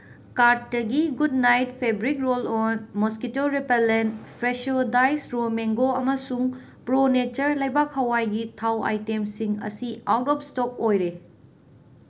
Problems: background sounds at intervals